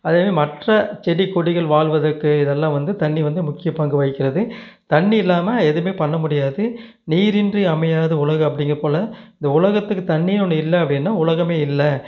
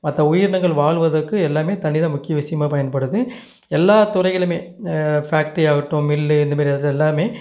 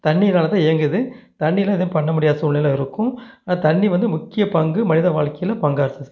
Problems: none marked